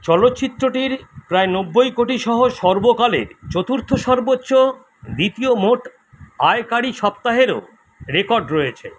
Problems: constant background noise